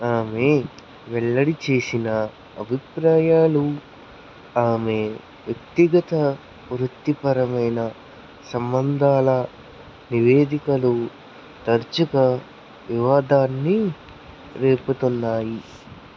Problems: constant background noise